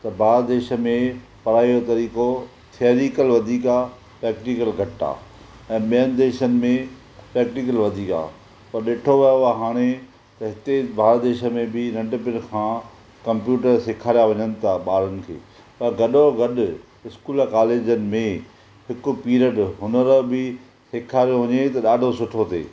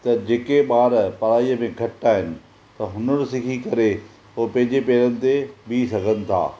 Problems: constant background noise